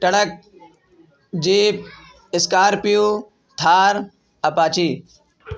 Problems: none marked